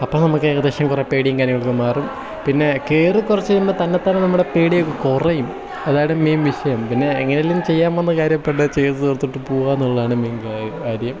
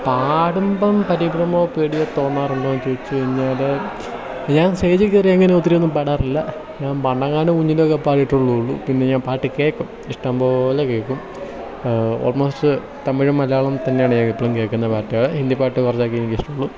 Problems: constant background noise